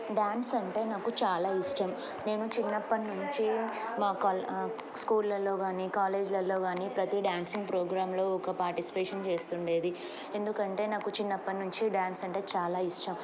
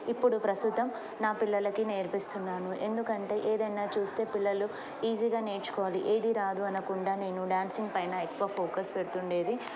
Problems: none marked